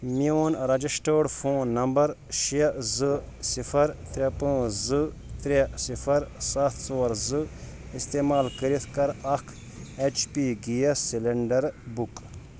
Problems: constant background noise